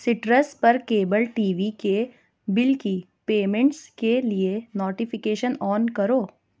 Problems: none marked